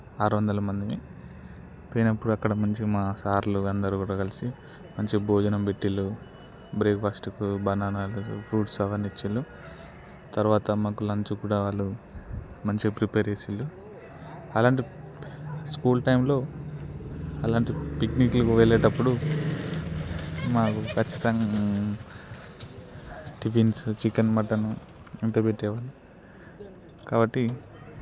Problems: none marked